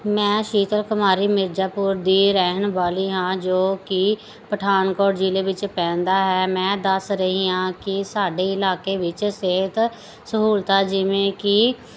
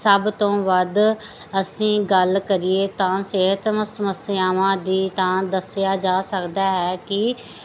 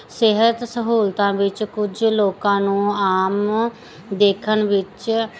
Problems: none marked